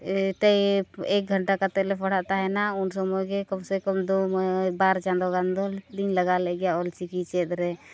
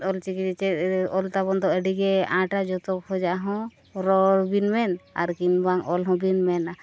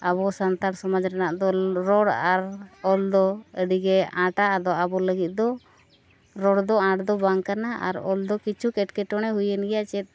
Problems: none marked